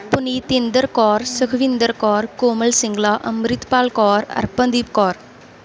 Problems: background sounds at intervals